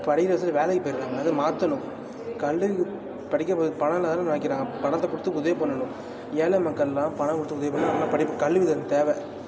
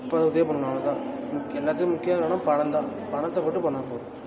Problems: constant background noise, continuous background conversations